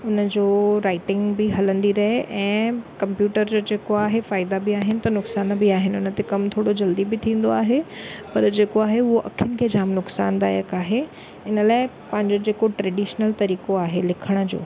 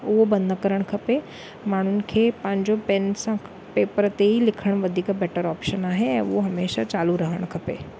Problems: none marked